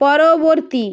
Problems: none marked